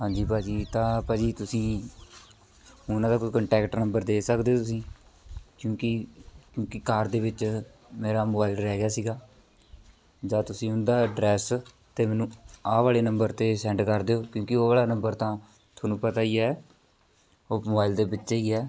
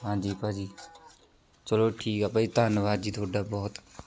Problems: continuous background conversations